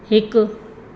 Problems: constant background noise, echo